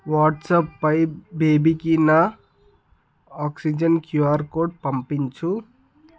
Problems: none marked